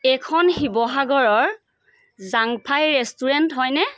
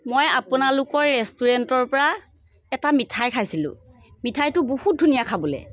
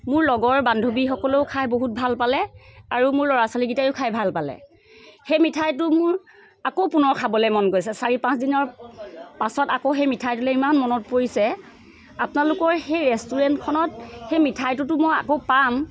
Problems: none marked